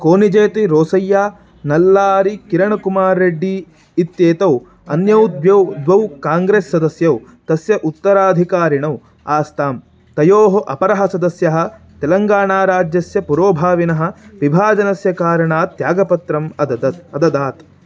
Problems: constant background noise